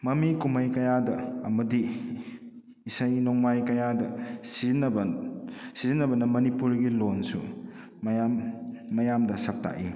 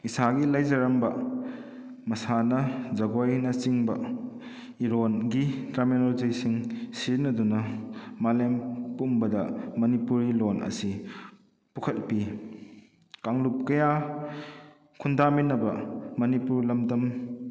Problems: none marked